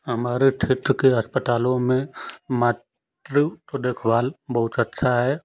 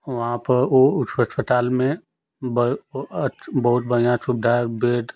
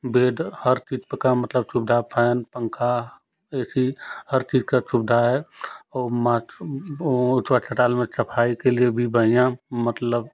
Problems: none marked